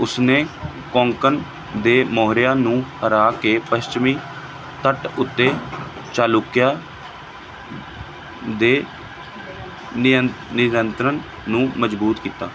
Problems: constant background noise